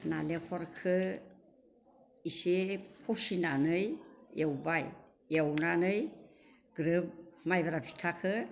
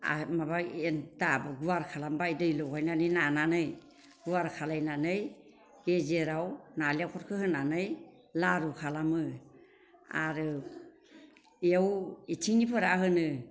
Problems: constant background noise